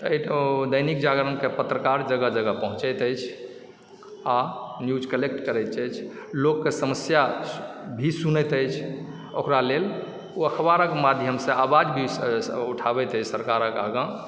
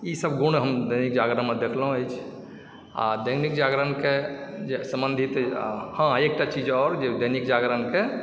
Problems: background sounds at intervals